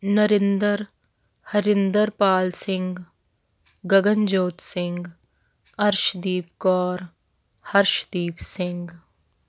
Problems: none marked